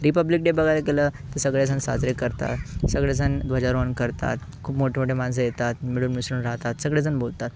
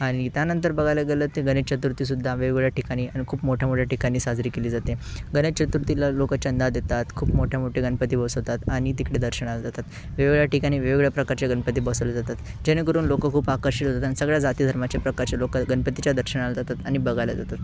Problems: constant background noise, background conversations at intervals